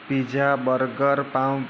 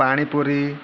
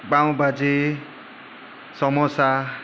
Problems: none marked